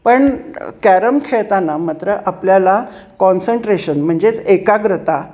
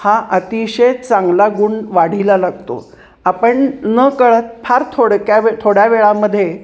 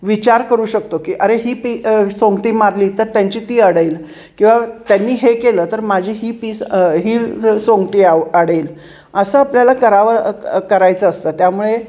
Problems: constant background noise